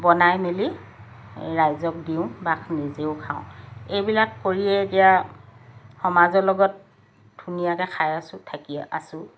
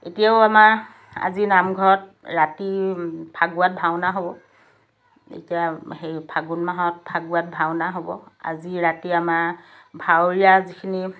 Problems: background sounds at intervals